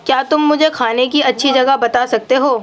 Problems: none marked